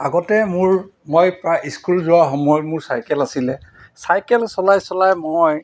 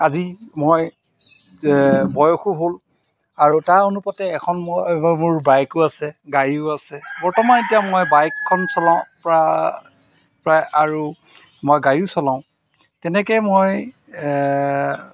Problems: none marked